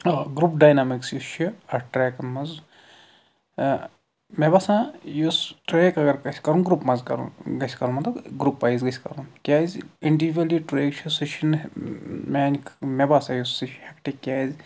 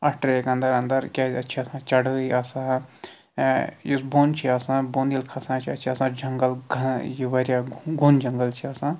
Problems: none marked